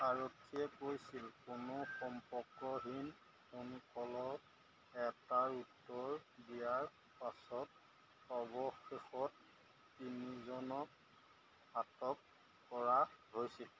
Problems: none marked